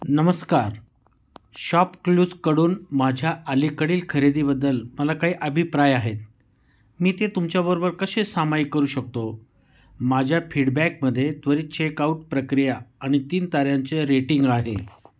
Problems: background sounds at intervals